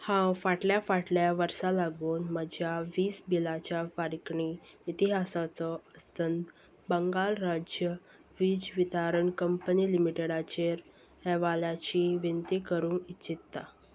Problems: none marked